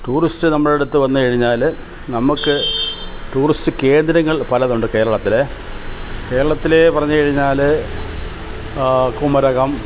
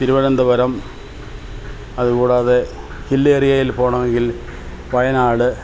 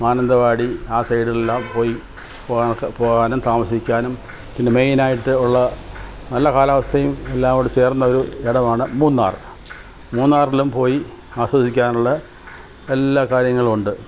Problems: constant background noise